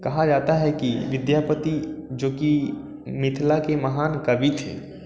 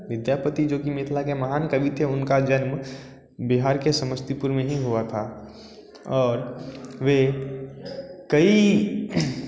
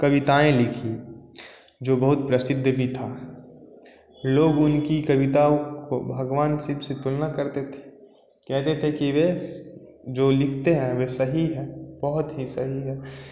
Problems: constant background noise